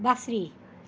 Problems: constant background noise